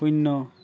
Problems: background sounds at intervals, background conversations at intervals